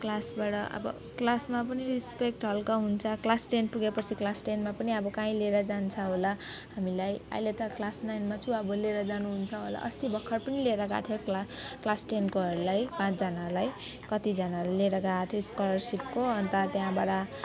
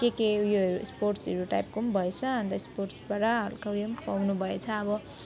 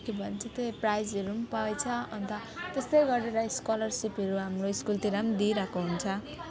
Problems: none marked